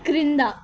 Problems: constant background noise